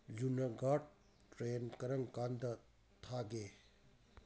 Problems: constant background noise